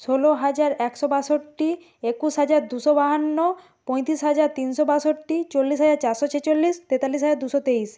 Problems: none marked